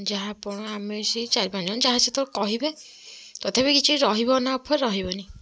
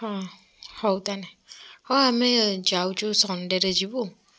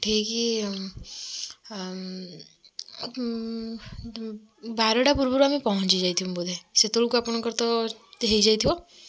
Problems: none marked